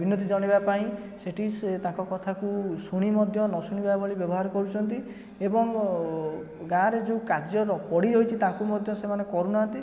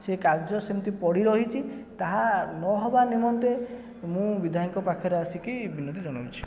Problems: continuous background conversations